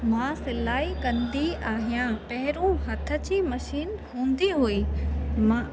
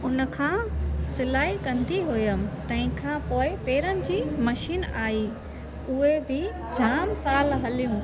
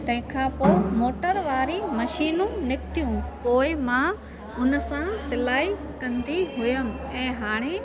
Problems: constant background noise